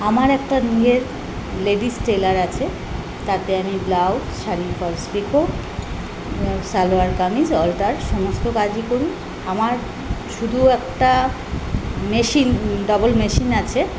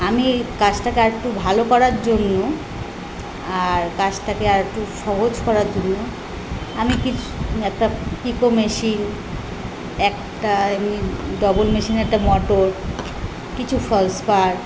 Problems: constant background noise